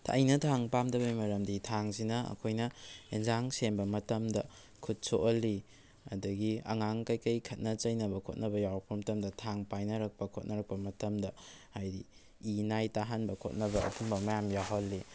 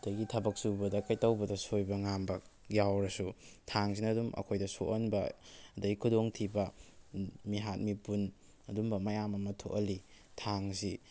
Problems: background sounds at intervals